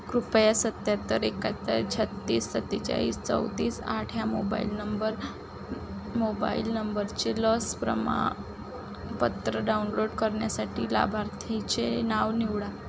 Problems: constant background noise